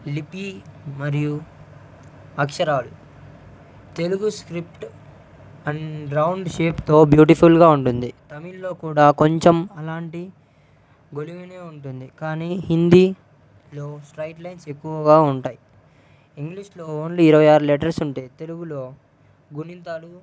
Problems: constant background noise, low volume